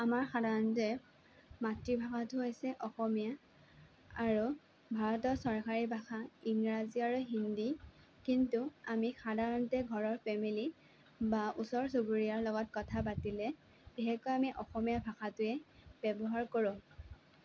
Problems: none marked